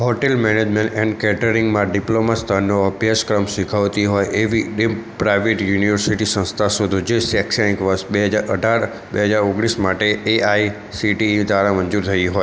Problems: constant background noise